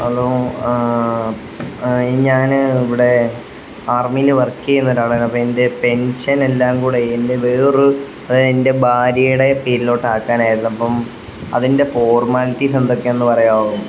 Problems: constant background noise